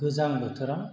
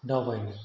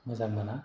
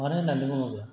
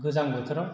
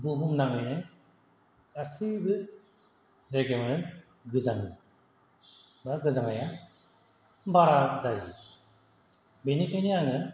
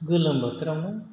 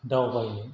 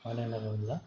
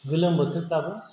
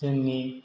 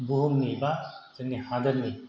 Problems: none marked